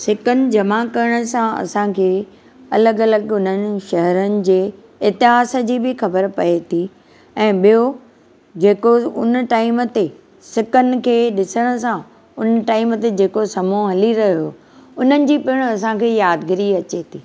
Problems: constant background noise